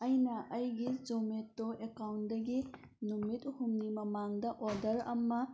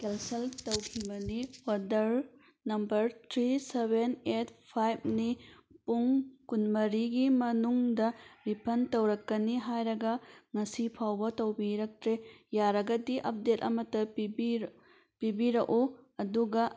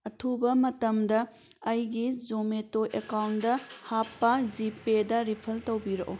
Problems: background sounds at intervals